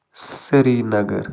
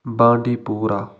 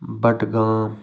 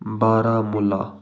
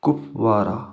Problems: constant background noise